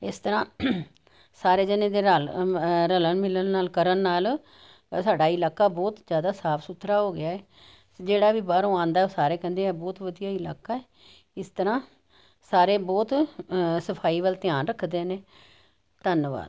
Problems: none marked